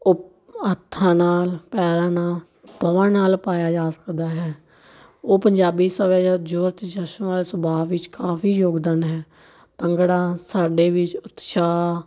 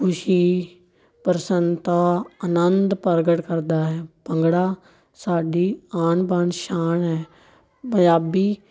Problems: continuous background conversations